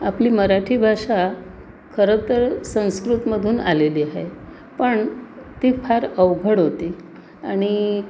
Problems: constant background noise, background conversations at intervals